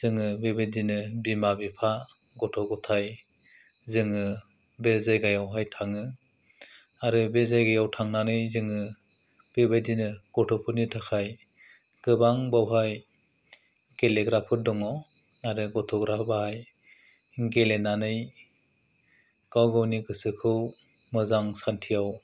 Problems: none marked